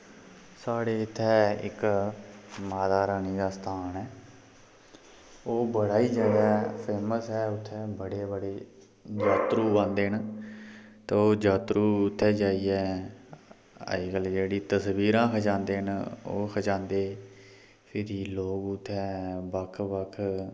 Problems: constant background noise